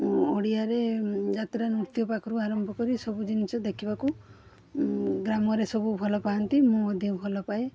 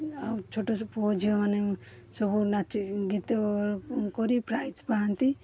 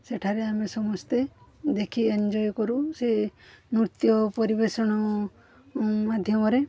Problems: background sounds at intervals